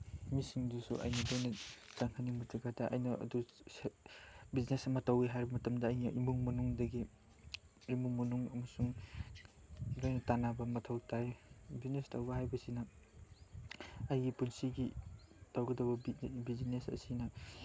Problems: background sounds at intervals, background conversations at intervals